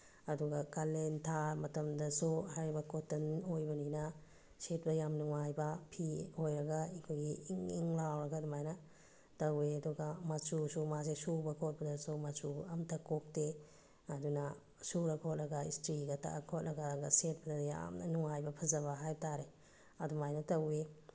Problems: low volume